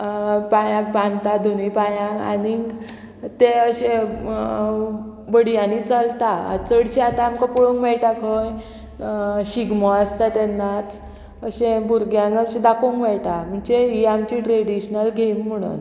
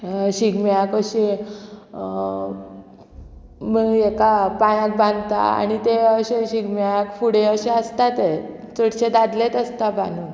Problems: none marked